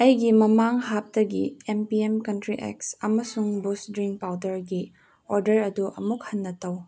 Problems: none marked